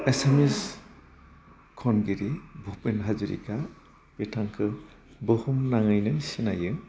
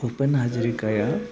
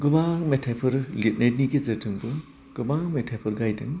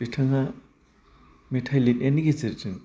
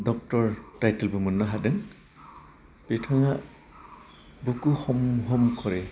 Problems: constant background noise